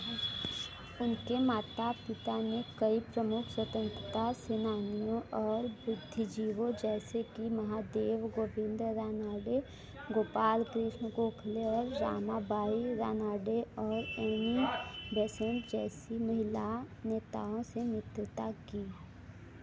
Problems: none marked